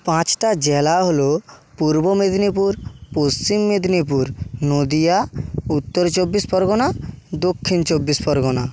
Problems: background sounds at intervals